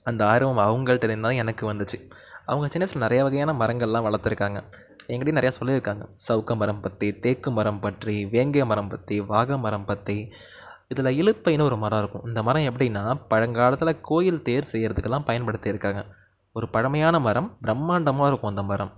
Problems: none marked